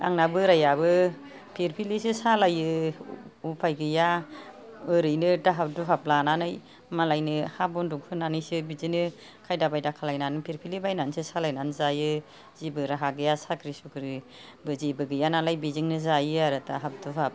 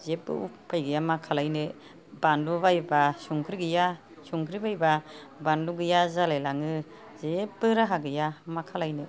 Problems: background conversations at intervals